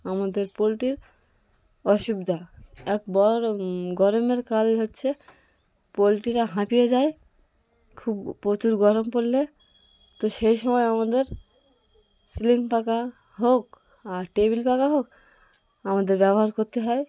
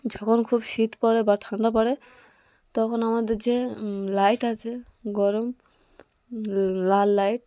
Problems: constant background noise, continuous background conversations